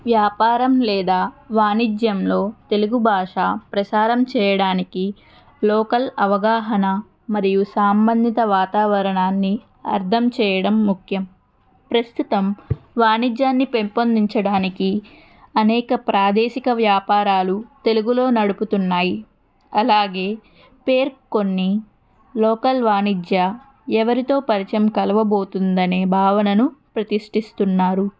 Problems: background conversations at intervals